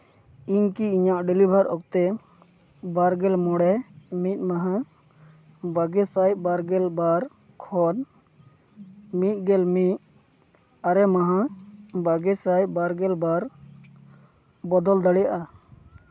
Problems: none marked